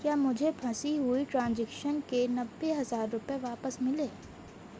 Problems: constant background noise